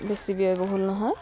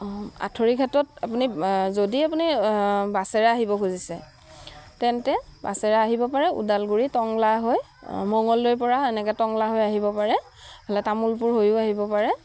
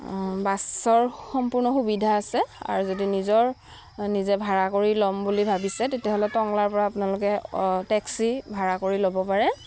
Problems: none marked